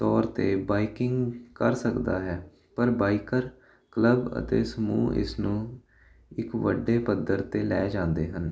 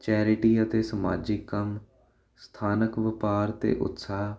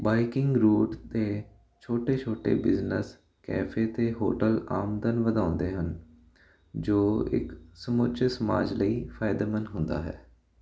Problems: constant background noise